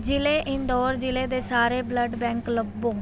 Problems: none marked